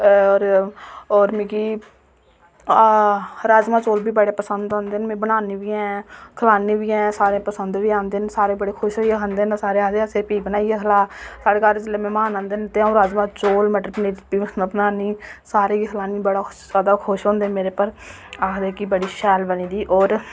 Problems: constant background noise